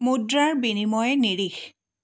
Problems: none marked